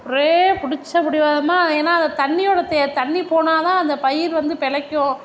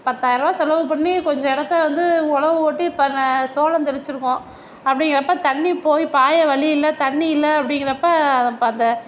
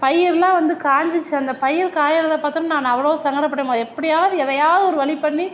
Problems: background sounds at intervals